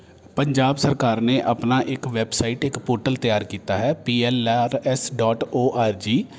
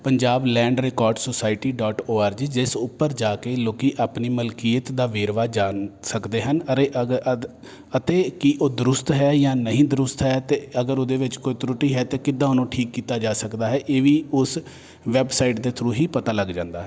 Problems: none marked